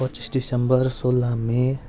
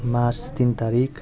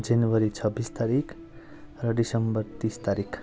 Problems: constant background noise